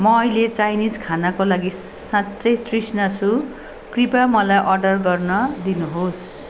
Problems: continuous background conversations